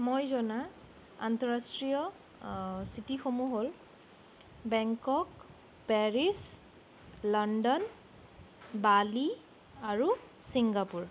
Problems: none marked